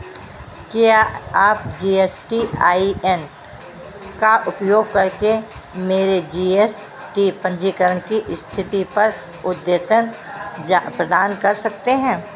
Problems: constant background noise